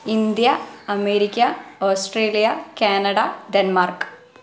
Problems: background sounds at intervals